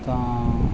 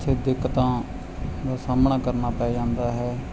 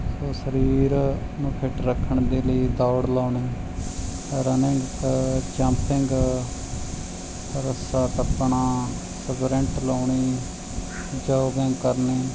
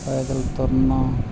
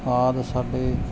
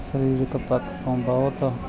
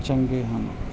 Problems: background sounds at intervals